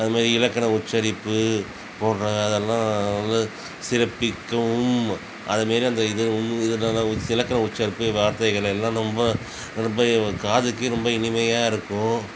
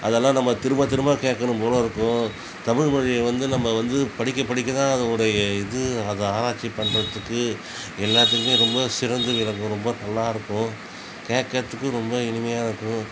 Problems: constant background noise